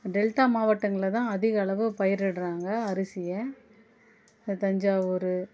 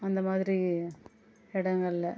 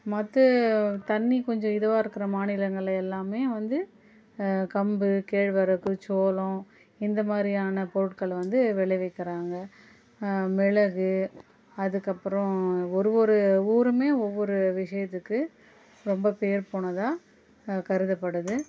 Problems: constant background noise, low volume